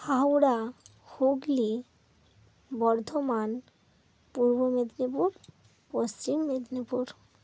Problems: none marked